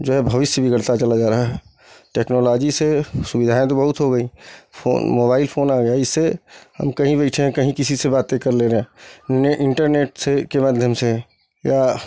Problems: none marked